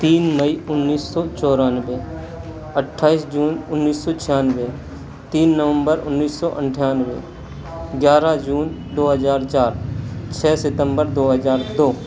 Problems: constant background noise